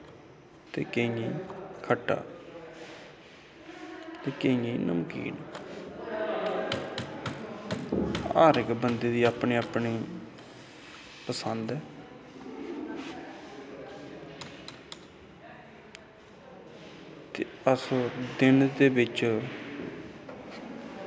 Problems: constant background noise, echo